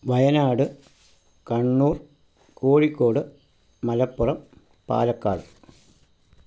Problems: none marked